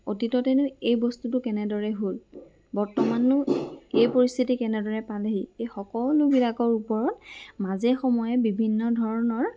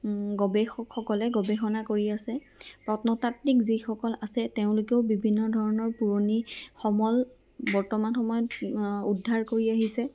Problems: background sounds at intervals